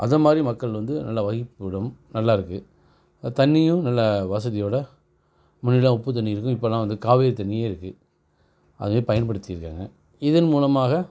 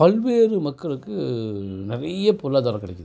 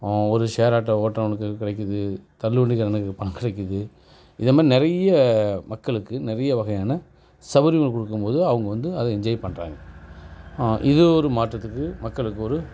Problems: none marked